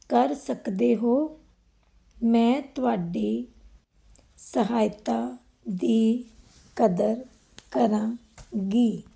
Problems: background sounds at intervals